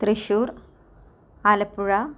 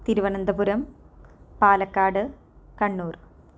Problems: low volume